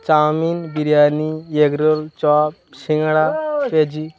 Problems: continuous background conversations